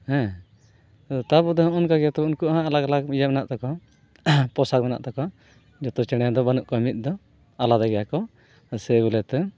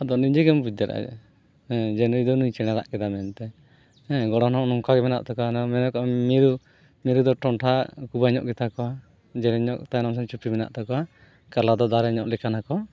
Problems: none marked